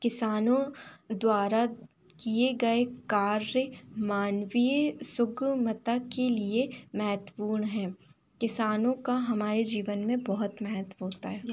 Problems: constant background noise